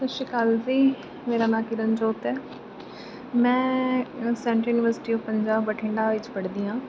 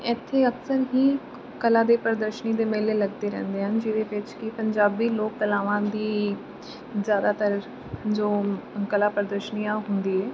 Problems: constant background noise